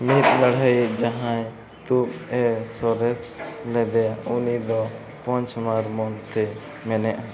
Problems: constant background noise, continuous background conversations